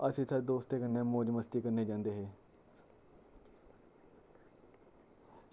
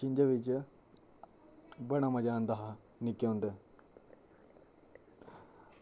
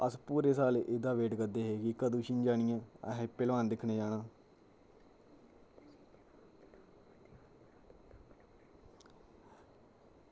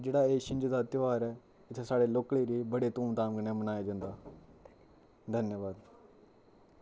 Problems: low volume